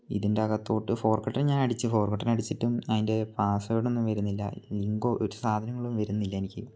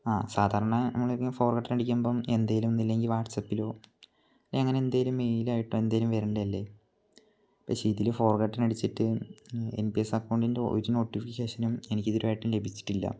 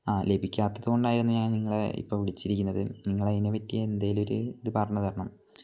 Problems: low volume